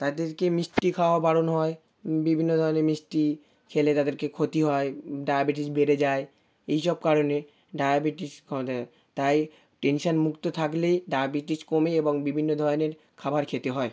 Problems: background sounds at intervals